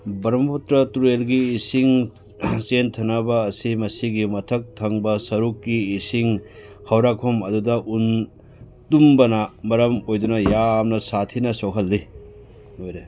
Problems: background sounds at intervals, background conversations at intervals